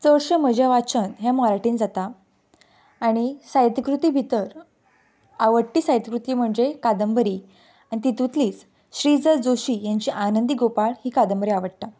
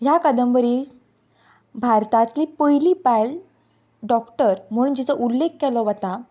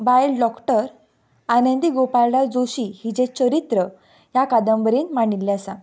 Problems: background sounds at intervals